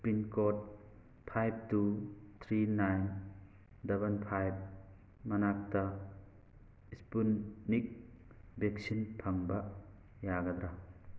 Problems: none marked